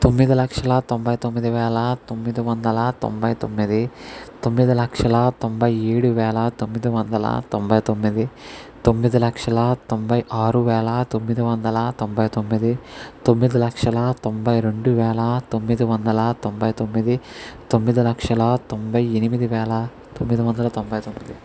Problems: none marked